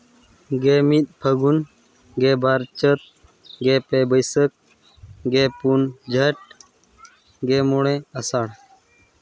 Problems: background conversations at intervals